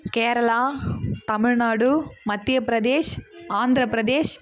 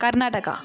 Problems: constant background noise